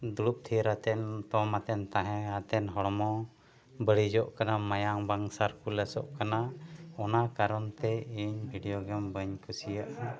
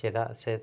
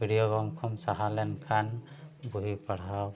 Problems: background sounds at intervals, background conversations at intervals